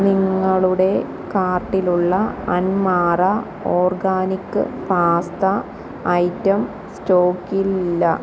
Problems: none marked